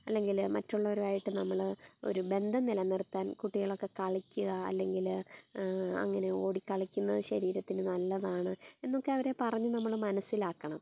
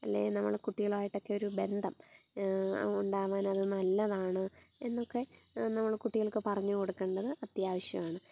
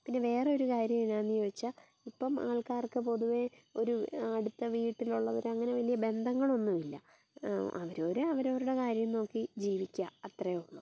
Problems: background sounds at intervals, low volume